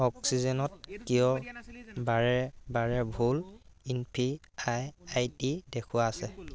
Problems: constant background noise